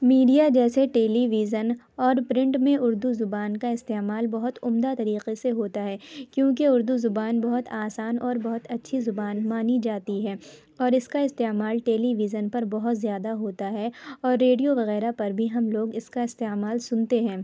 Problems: background sounds at intervals